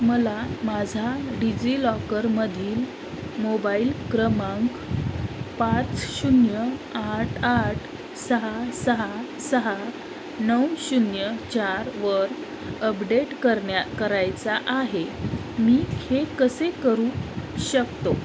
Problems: constant background noise